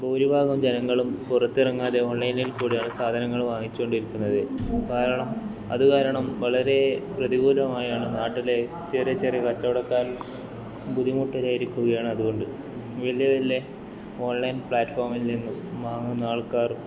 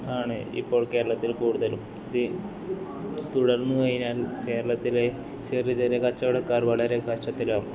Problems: background sounds at intervals, continuous background conversations, low volume